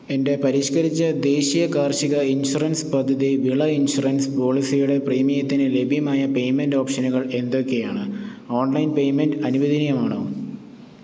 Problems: none marked